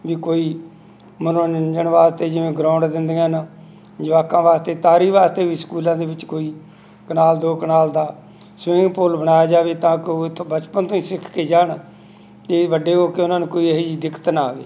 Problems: none marked